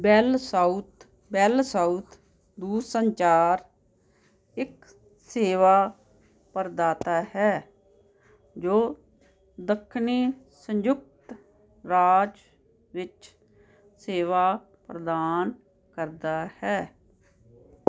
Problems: constant background noise